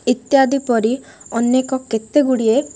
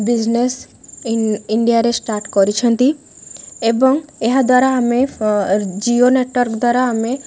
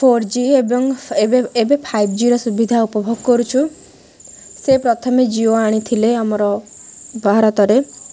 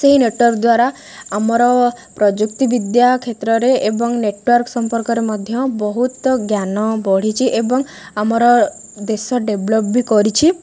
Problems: none marked